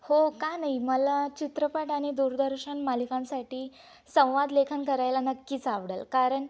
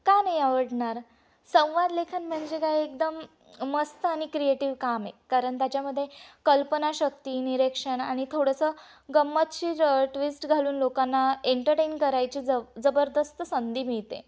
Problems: constant background noise, background conversations at intervals